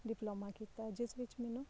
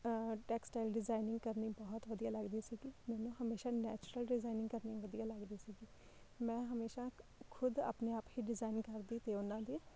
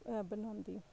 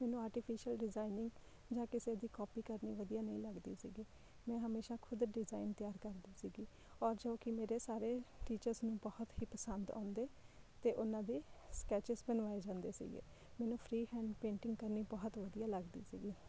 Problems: none marked